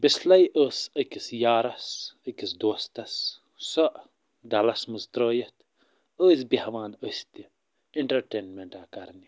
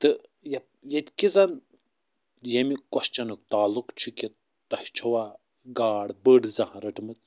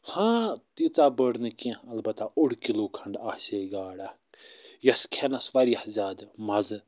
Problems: none marked